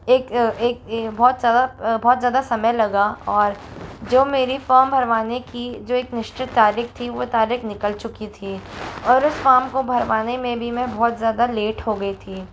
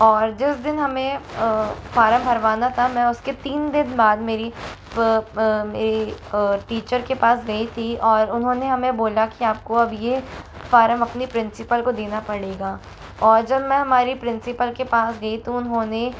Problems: constant background noise